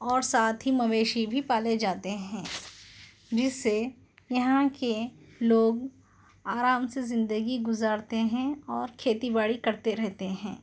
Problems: none marked